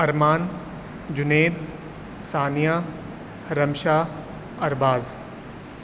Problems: constant background noise, echo